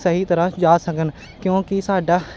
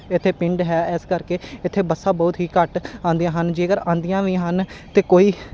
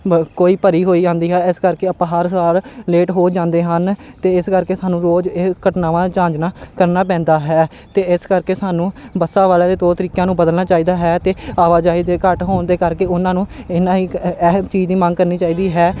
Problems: constant background noise